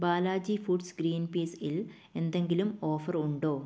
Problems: none marked